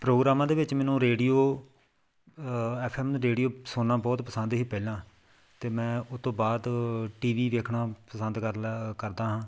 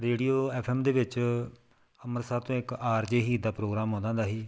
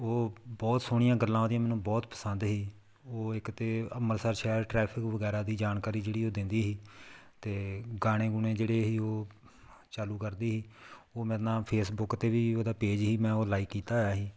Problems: none marked